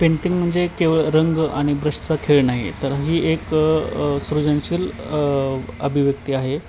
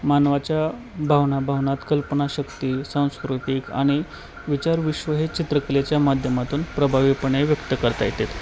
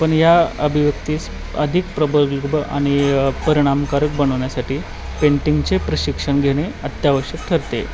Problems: constant background noise